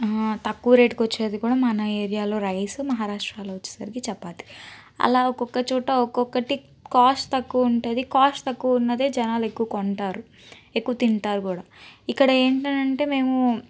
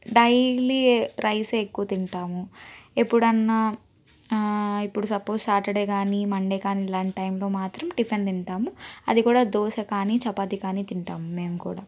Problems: none marked